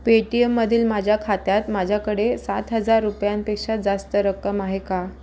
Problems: background sounds at intervals